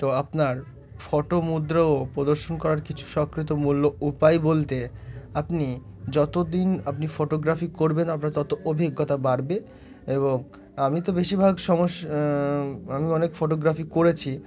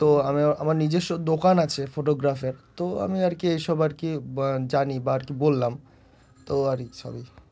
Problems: none marked